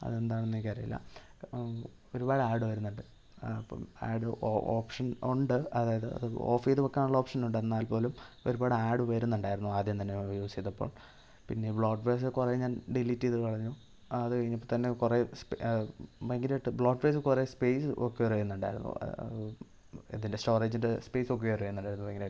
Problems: low volume